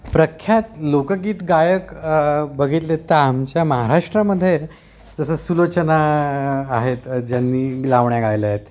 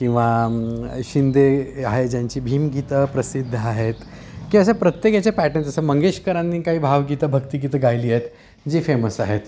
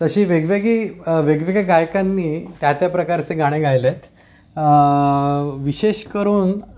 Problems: background sounds at intervals